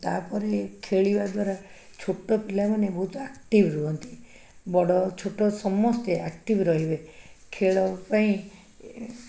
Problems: background conversations at intervals